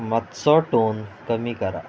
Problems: constant background noise